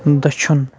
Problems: none marked